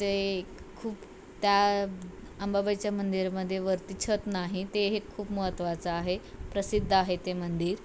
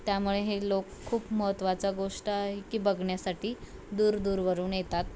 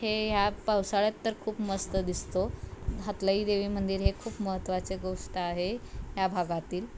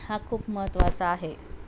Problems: none marked